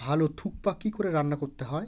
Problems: background sounds at intervals